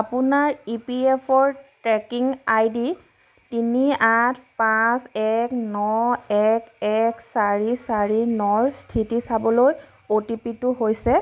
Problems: background sounds at intervals